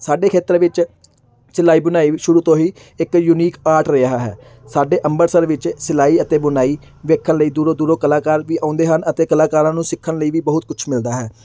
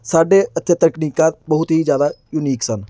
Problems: none marked